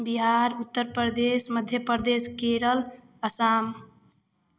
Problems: none marked